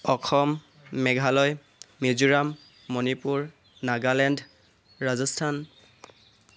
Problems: constant background noise